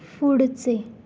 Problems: none marked